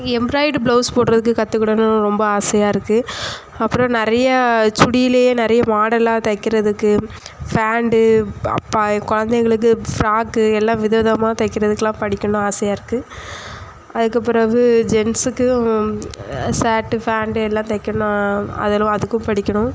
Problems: echo